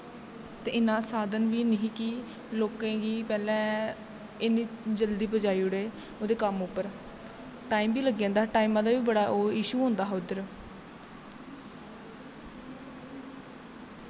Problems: none marked